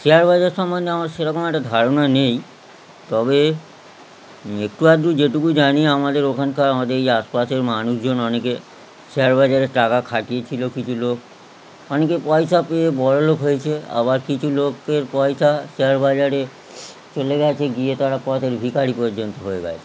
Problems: constant background noise